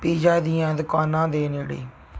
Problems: background sounds at intervals